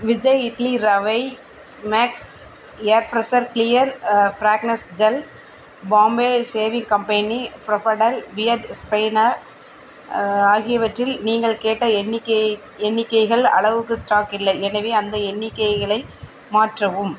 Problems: constant background noise